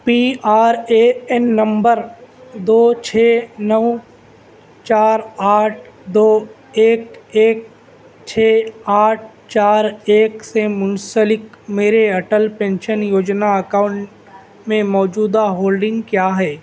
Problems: none marked